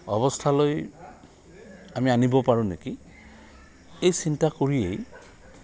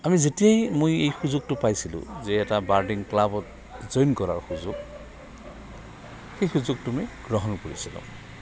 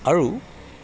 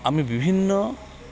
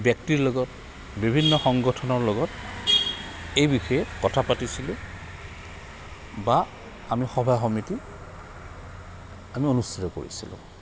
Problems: constant background noise, continuous background conversations